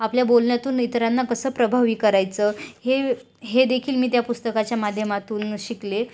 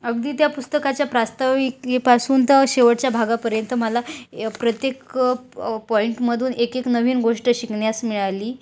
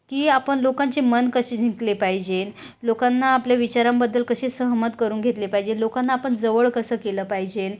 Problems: none marked